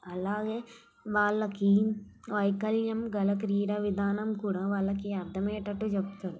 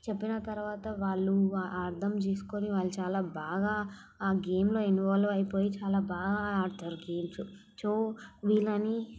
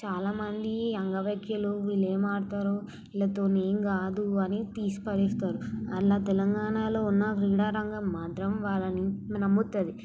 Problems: background sounds at intervals, background conversations at intervals, low volume